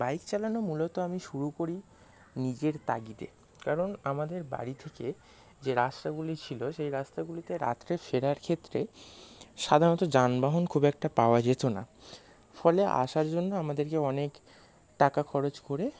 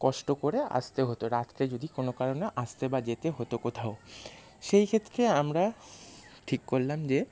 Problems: constant background noise, background conversations at intervals